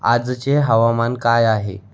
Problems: constant background noise, background conversations at intervals